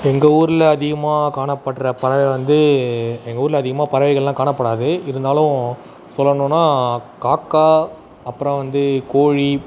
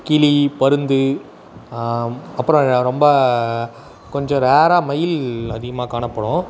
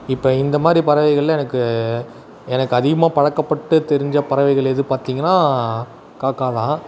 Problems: constant background noise, background conversations at intervals